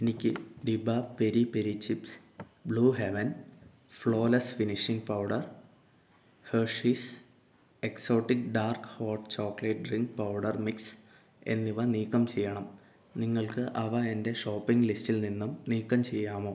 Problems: low volume